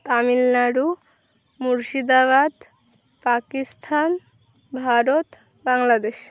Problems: constant background noise